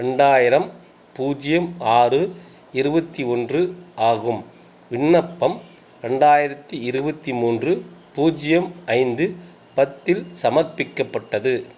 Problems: constant background noise